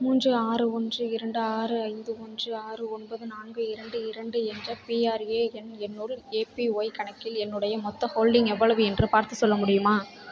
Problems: background conversations at intervals